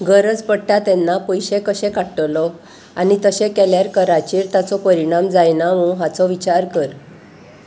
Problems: constant background noise